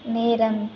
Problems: none marked